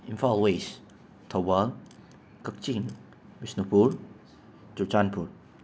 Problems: constant background noise